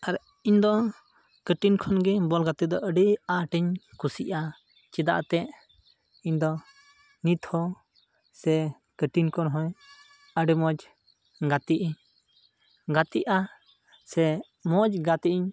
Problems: background sounds at intervals